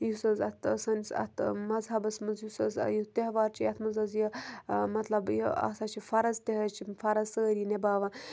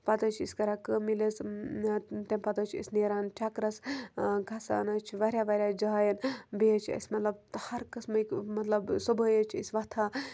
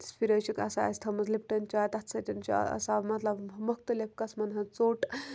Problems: constant background noise